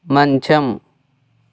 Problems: none marked